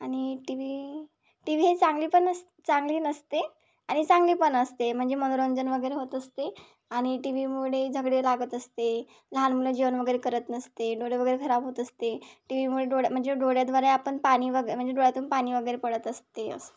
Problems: background sounds at intervals